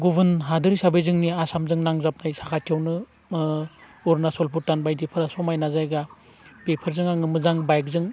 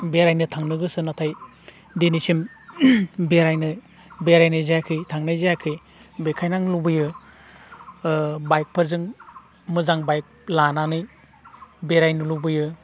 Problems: none marked